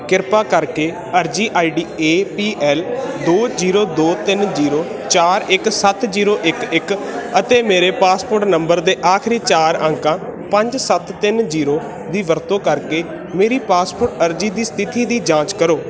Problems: constant background noise